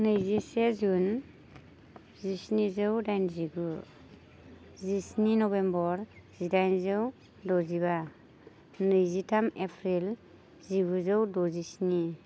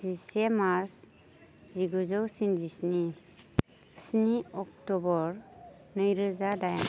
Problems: constant background noise